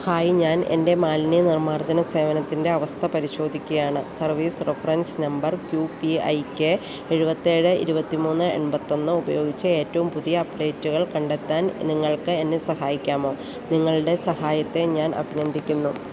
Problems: constant background noise